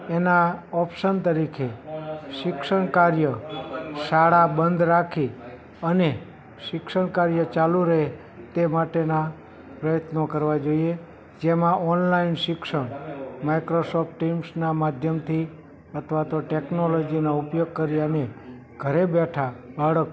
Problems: background conversations at intervals